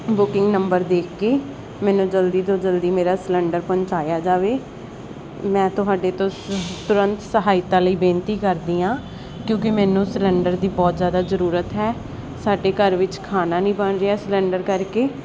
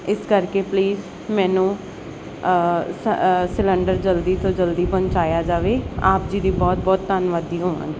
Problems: constant background noise